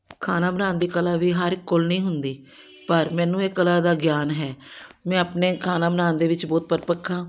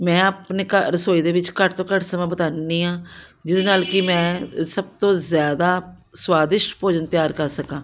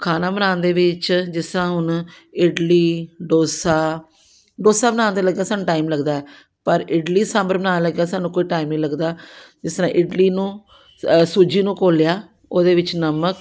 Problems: background sounds at intervals